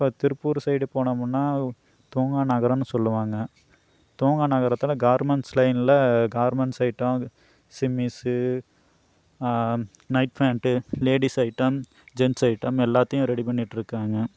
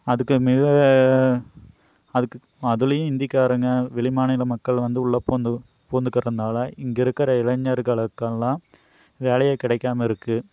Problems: none marked